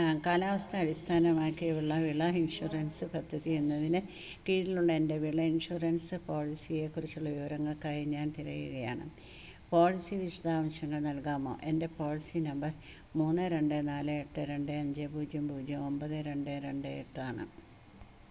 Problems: constant background noise